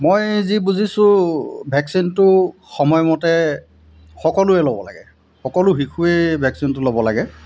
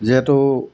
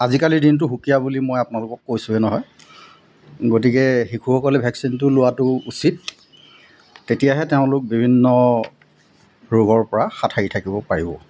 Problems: constant background noise